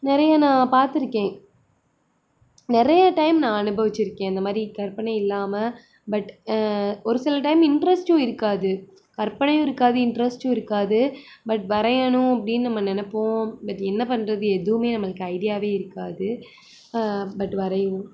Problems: none marked